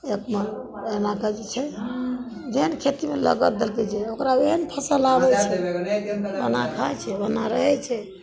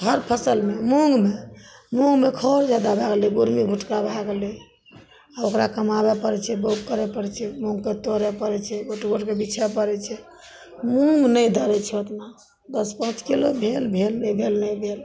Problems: background sounds at intervals